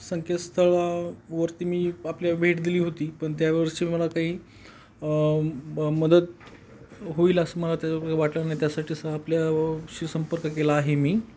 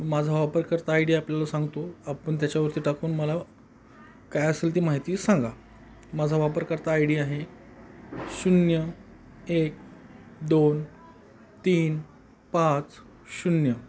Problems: none marked